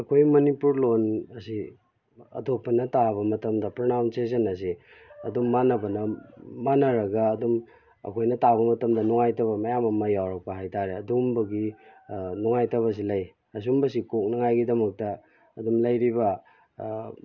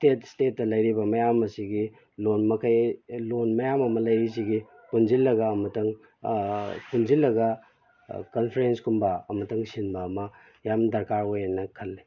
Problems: background sounds at intervals